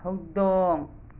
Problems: none marked